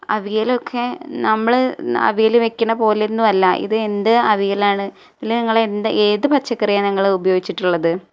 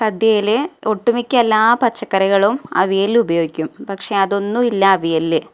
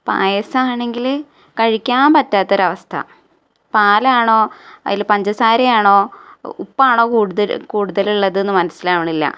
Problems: none marked